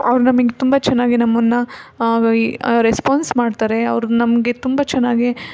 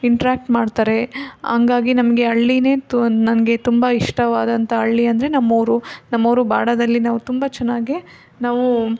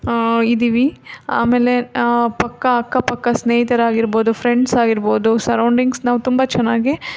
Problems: background sounds at intervals